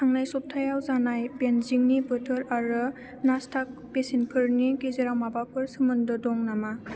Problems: low volume